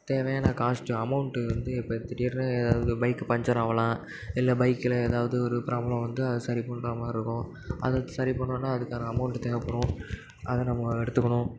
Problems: background sounds at intervals, echo